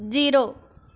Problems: none marked